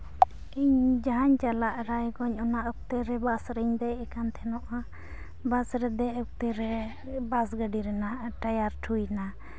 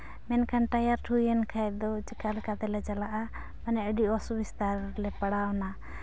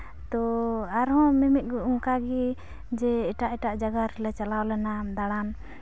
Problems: none marked